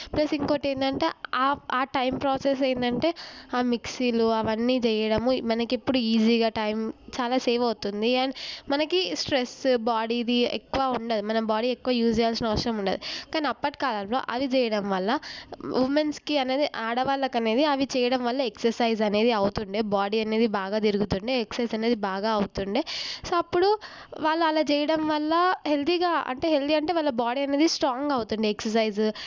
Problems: none marked